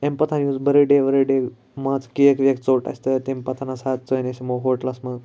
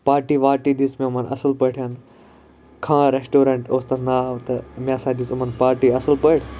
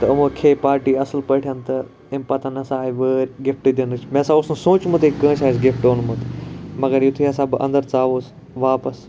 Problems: none marked